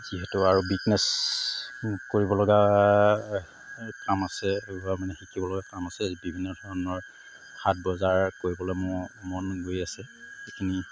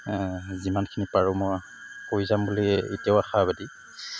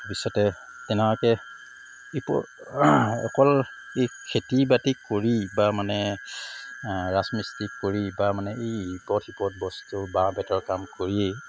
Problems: background sounds at intervals